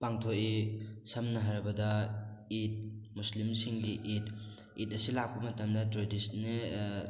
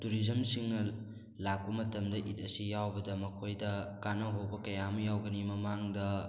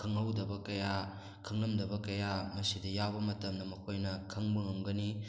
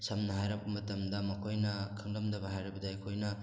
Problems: background sounds at intervals